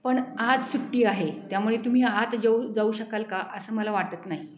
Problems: none marked